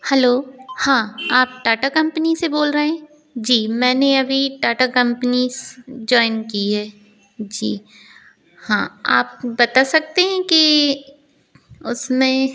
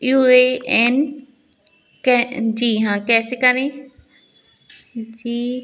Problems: constant background noise